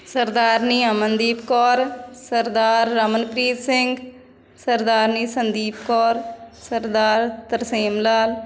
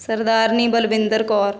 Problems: background sounds at intervals